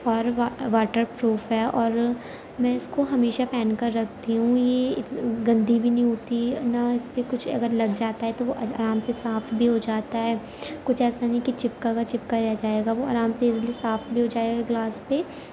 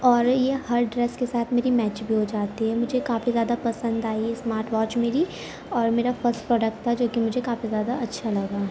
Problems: constant background noise